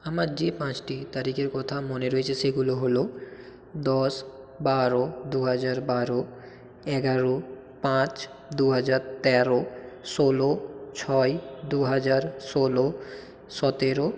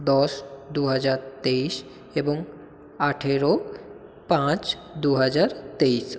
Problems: constant background noise